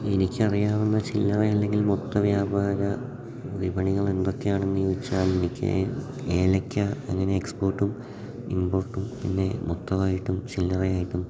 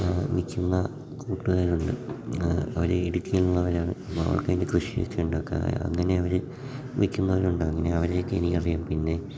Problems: background sounds at intervals, low volume